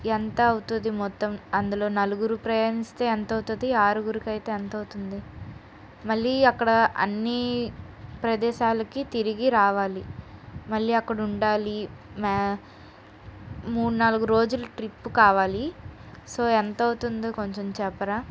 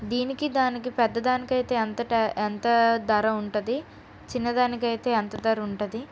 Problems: background sounds at intervals